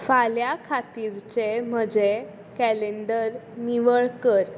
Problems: constant background noise